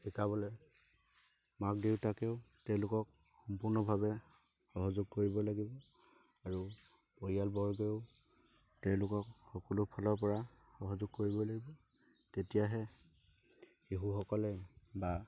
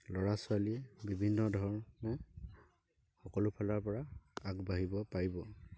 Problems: constant background noise